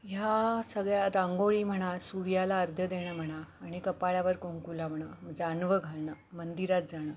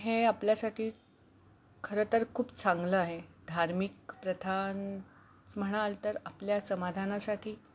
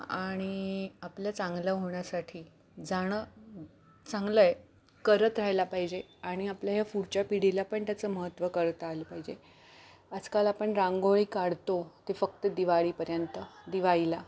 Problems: background sounds at intervals